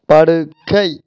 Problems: constant background noise